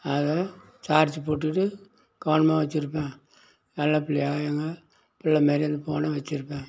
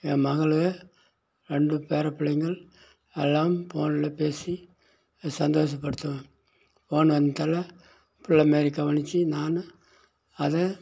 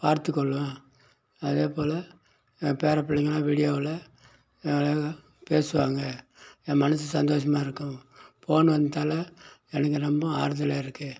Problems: background sounds at intervals